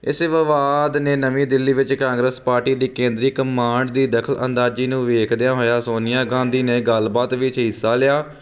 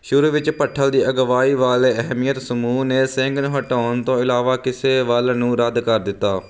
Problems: constant background noise